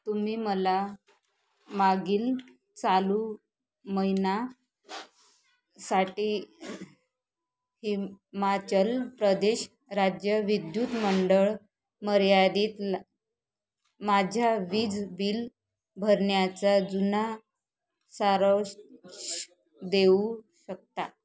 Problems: none marked